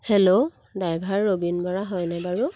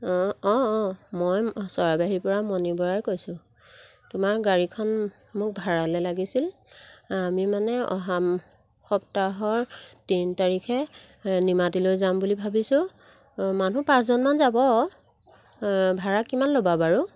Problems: background sounds at intervals